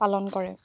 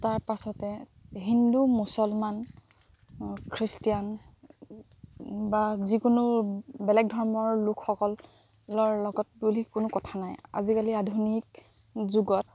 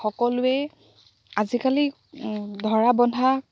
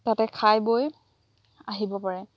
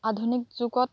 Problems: none marked